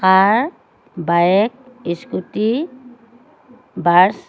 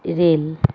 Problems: constant background noise